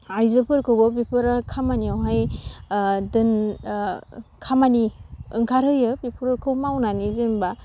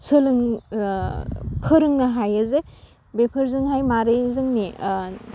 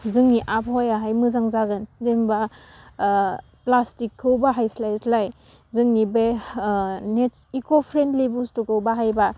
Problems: none marked